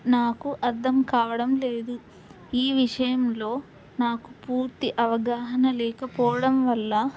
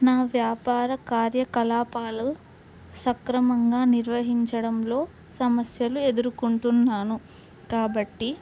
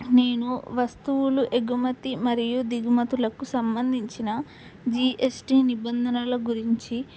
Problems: none marked